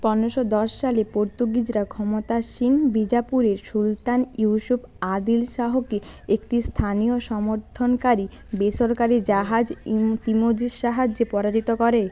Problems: none marked